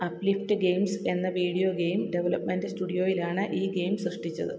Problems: constant background noise, low volume